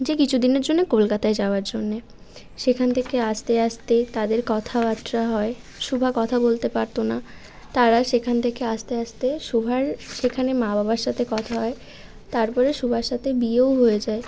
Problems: constant background noise